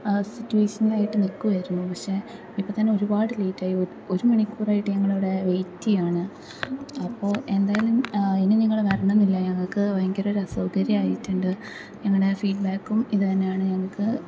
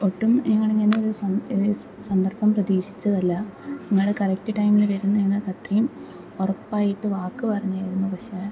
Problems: background sounds at intervals, low volume